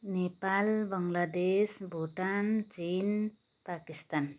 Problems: constant background noise